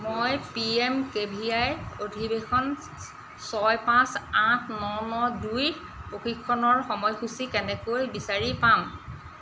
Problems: none marked